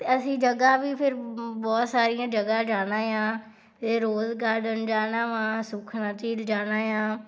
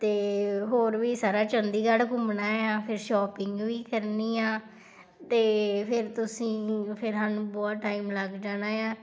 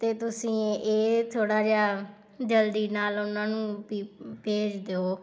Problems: background sounds at intervals